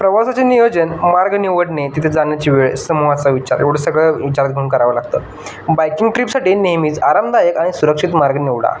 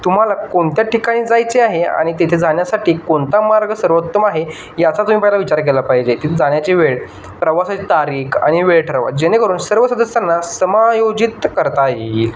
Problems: constant background noise, background conversations at intervals